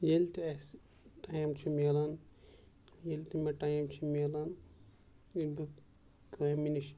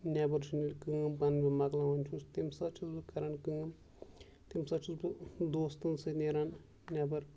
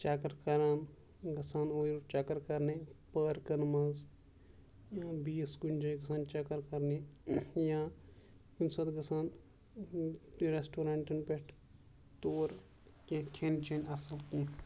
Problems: background sounds at intervals